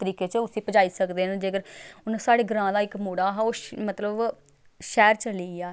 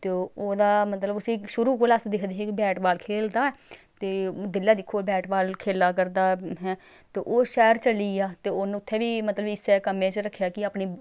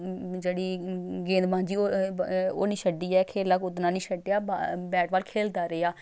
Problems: background sounds at intervals